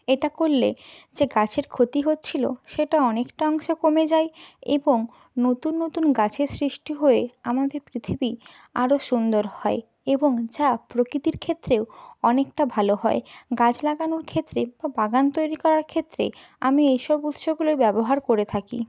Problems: background sounds at intervals